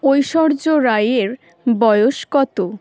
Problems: none marked